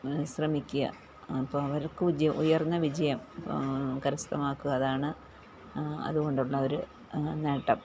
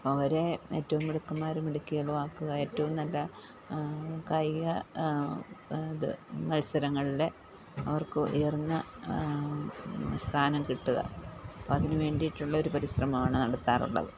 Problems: low volume